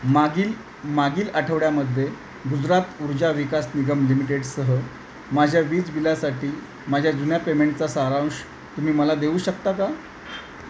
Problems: none marked